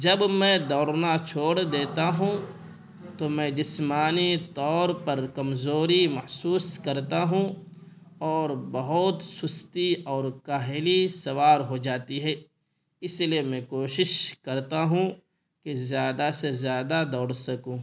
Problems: none marked